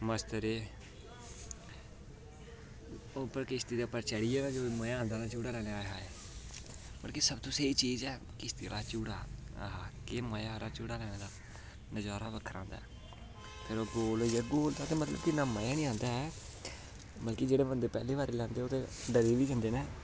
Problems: constant background noise